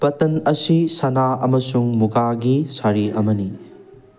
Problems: background sounds at intervals